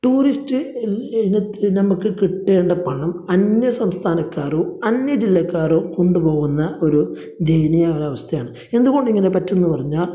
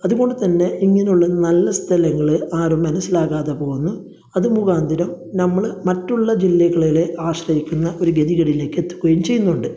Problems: background sounds at intervals, low volume